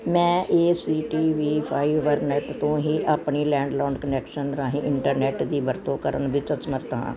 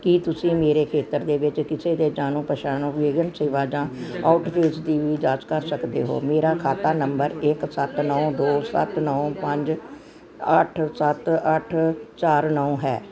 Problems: none marked